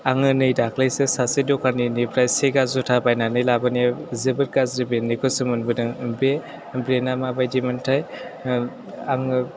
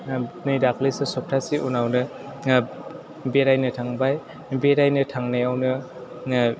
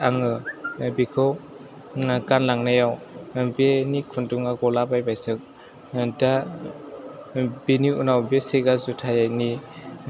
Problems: background sounds at intervals